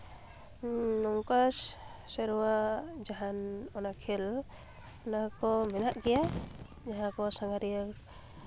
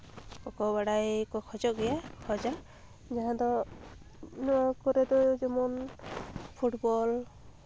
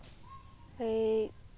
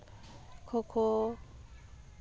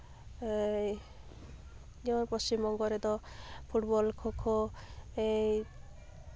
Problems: constant background noise, background conversations at intervals